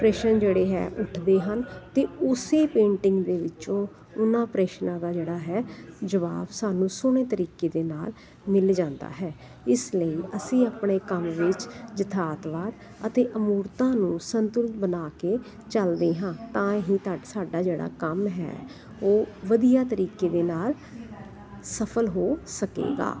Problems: continuous background conversations